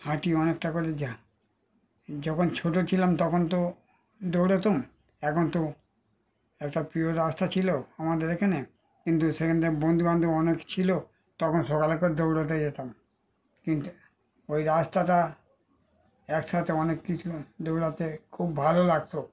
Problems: background sounds at intervals